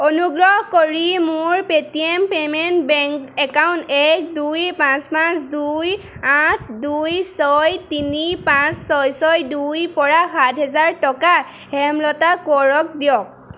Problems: none marked